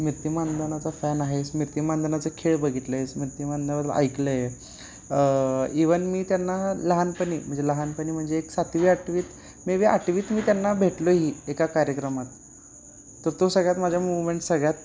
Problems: constant background noise